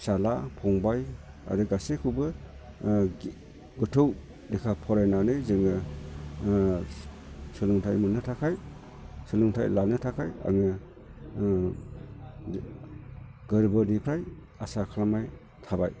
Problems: none marked